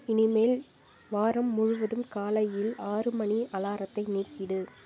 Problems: constant background noise